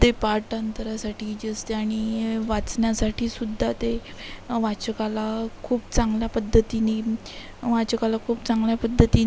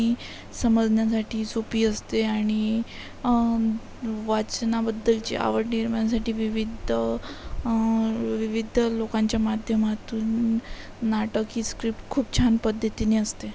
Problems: constant background noise, background conversations at intervals